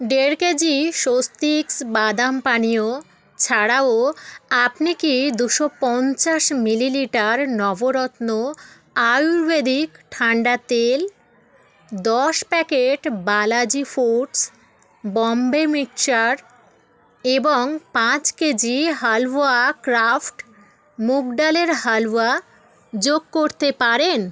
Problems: background sounds at intervals, continuous background conversations